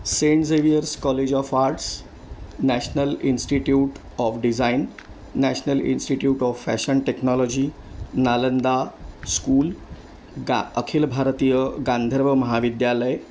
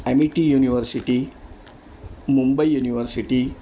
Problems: none marked